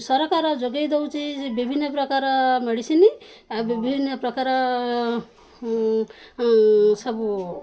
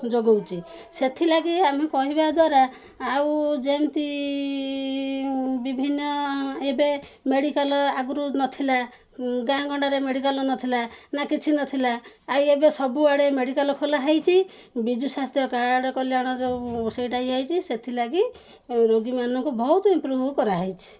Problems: background sounds at intervals, background conversations at intervals